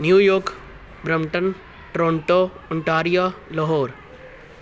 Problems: background sounds at intervals